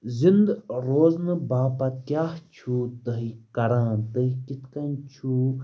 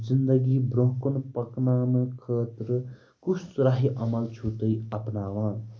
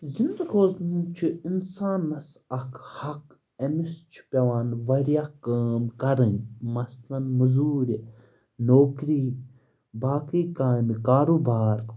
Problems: background sounds at intervals